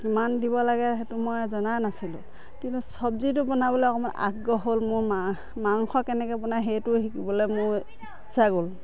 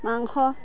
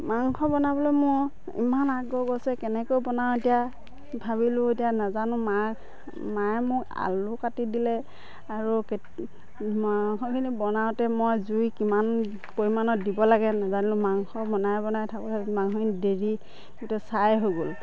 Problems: constant background noise, background conversations at intervals